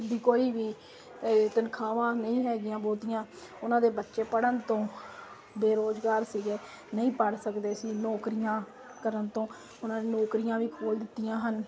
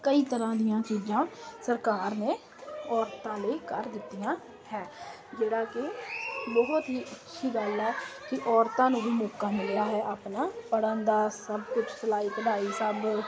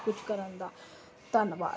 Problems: constant background noise